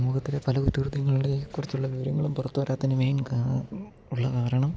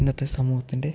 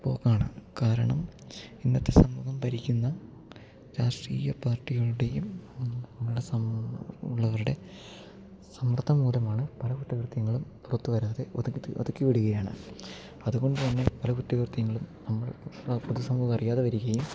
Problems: low volume